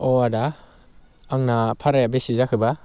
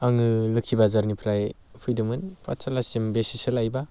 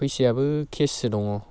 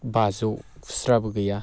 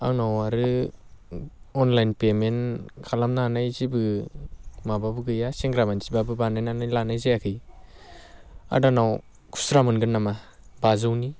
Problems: none marked